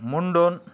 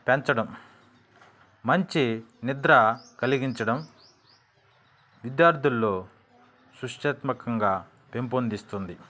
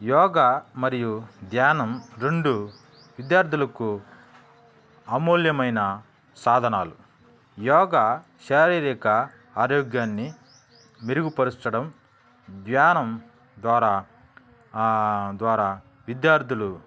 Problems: background sounds at intervals